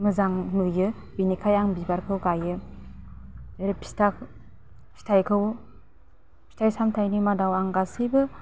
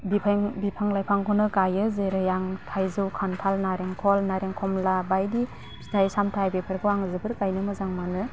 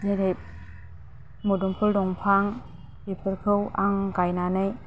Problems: low volume